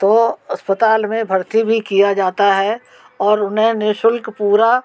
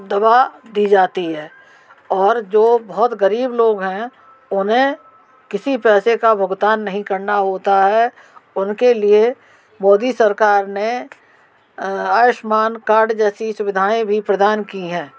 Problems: constant background noise